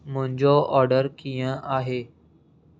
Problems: none marked